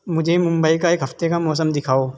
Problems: constant background noise